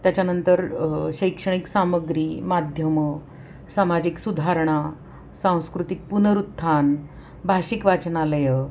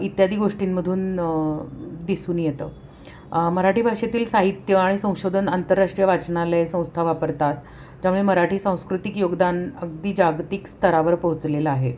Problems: background sounds at intervals